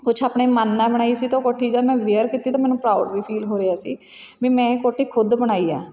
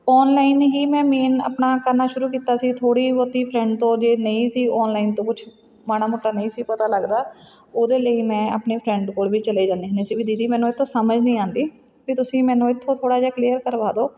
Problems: background sounds at intervals